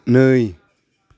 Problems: constant background noise